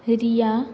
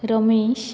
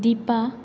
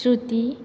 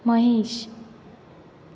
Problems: background sounds at intervals